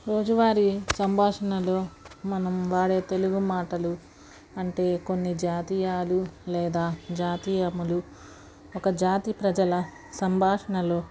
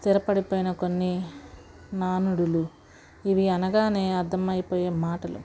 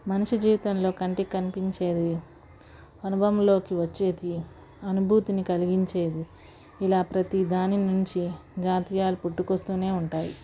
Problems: background sounds at intervals, background conversations at intervals